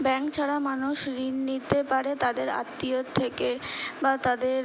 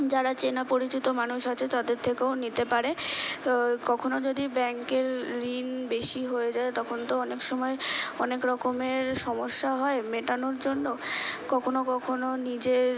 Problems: constant background noise